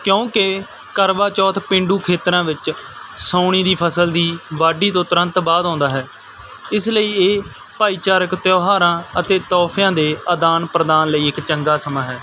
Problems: constant background noise